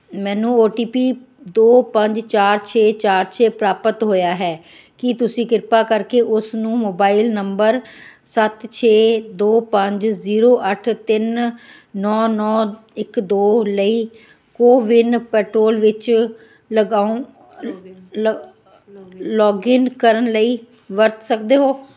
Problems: background conversations at intervals